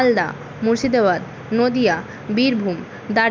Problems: constant background noise